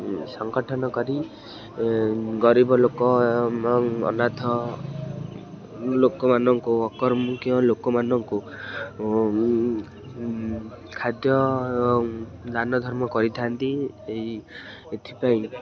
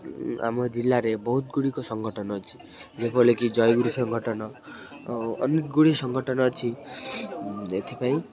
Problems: constant background noise, continuous background conversations